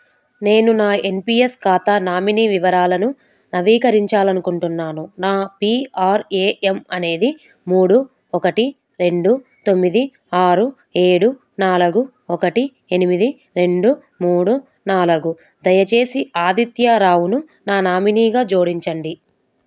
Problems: none marked